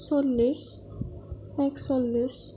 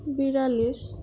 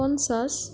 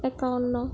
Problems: background sounds at intervals